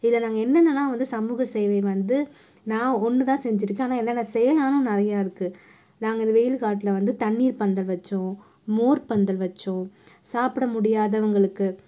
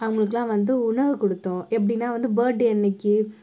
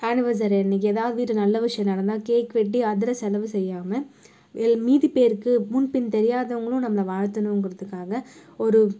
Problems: none marked